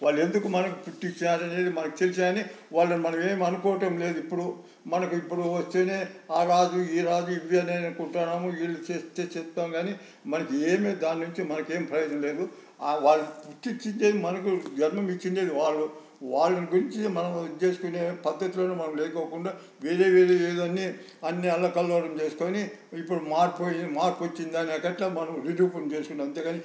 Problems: none marked